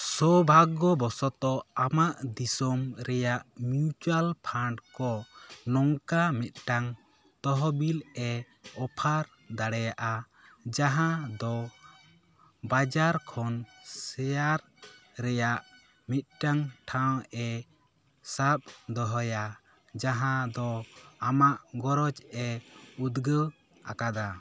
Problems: constant background noise